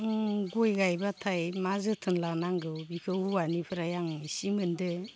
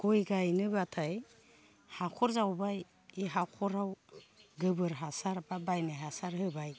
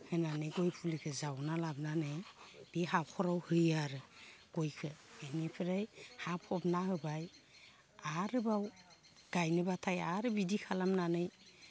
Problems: low volume